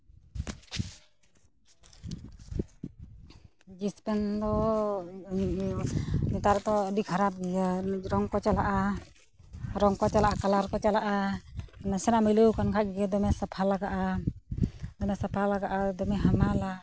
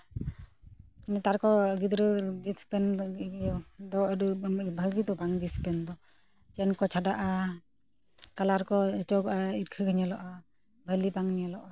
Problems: none marked